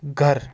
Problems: constant background noise